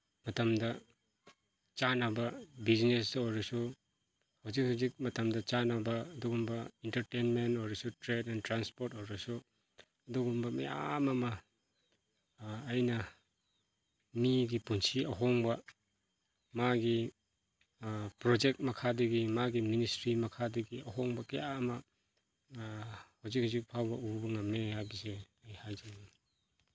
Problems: background sounds at intervals